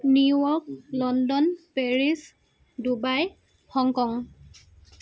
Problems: background sounds at intervals, continuous background conversations